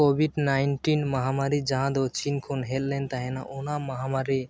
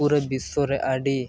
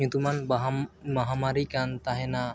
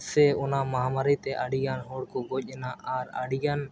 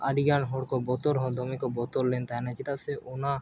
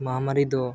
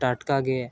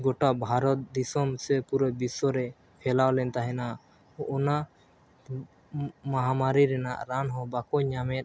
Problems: none marked